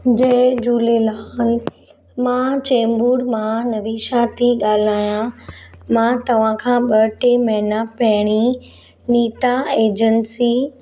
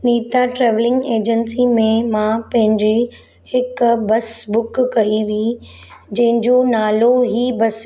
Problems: none marked